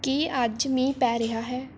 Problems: none marked